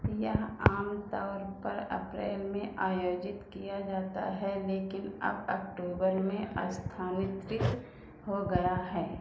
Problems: constant background noise